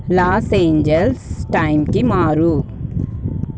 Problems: background sounds at intervals